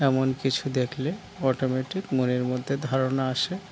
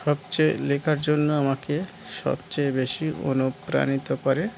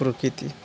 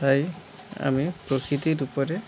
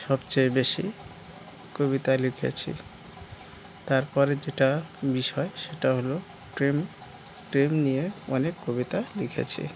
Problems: background sounds at intervals